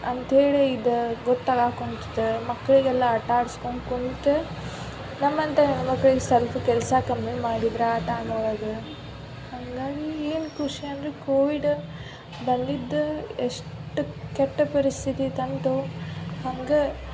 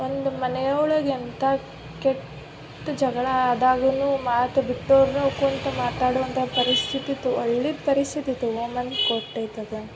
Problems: none marked